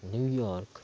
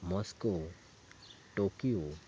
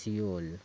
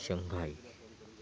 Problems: constant background noise, low volume